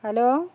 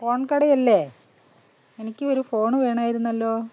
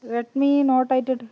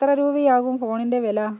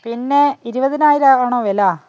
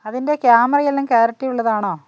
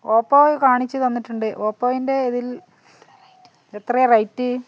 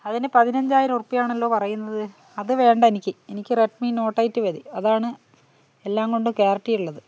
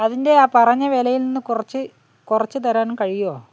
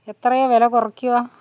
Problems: background conversations at intervals